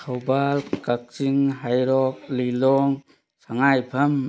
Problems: none marked